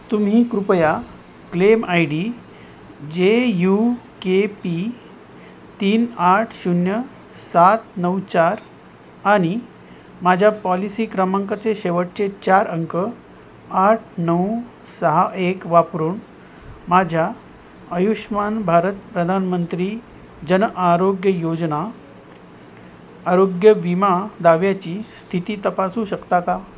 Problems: constant background noise